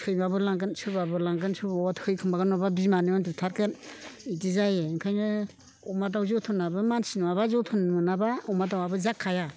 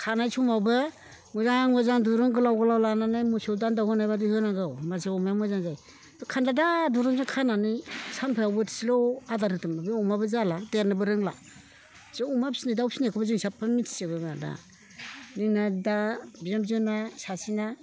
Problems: constant background noise